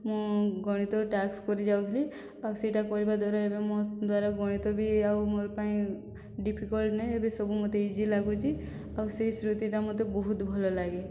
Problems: none marked